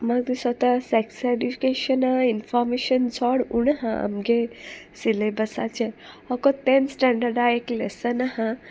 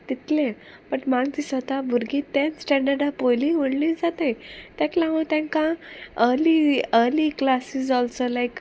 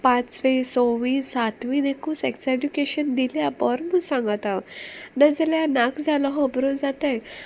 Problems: none marked